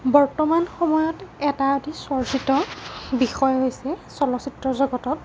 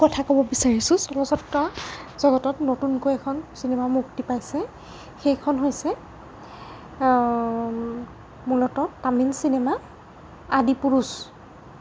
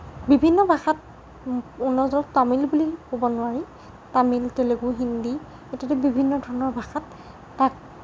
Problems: constant background noise